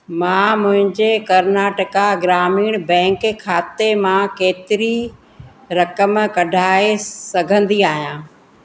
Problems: constant background noise, echo